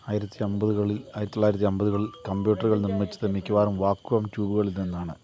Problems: constant background noise, low volume